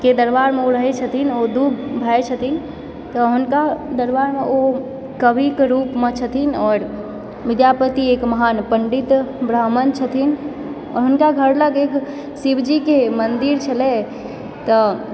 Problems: background sounds at intervals, background conversations at intervals